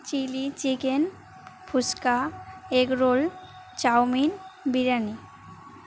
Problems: constant background noise